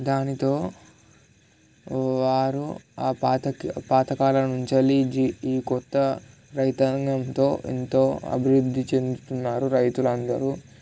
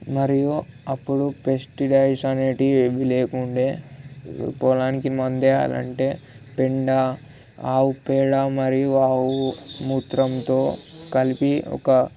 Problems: none marked